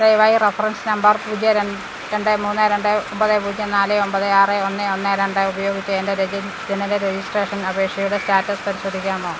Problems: constant background noise